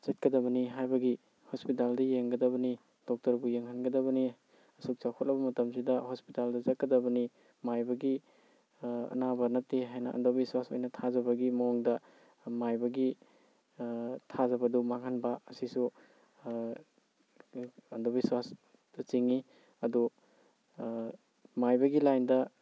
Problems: none marked